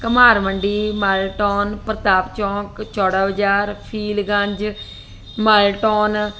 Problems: constant background noise